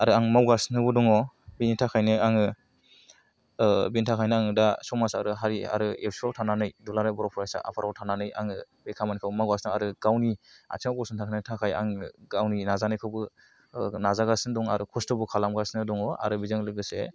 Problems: none marked